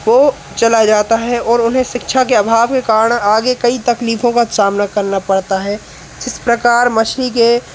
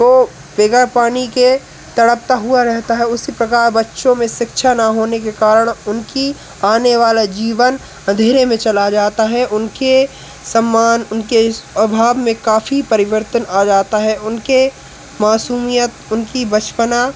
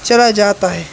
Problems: constant background noise